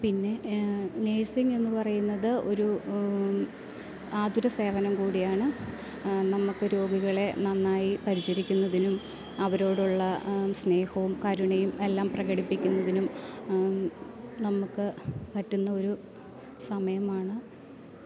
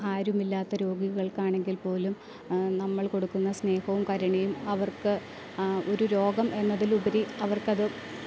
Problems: constant background noise